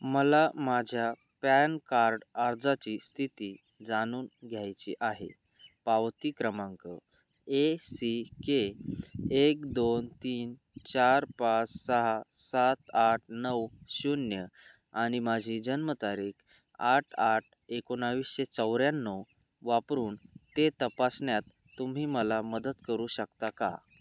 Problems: constant background noise